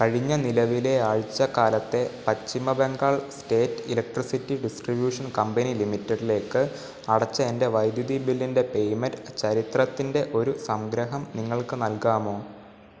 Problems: background sounds at intervals